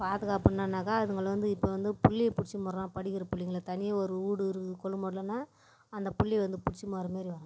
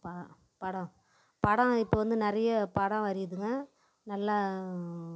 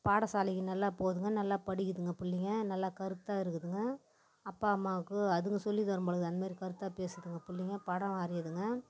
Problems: background sounds at intervals